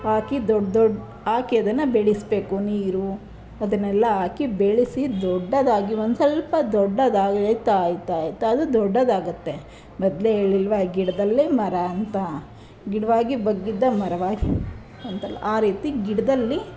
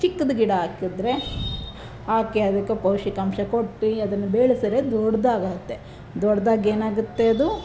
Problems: none marked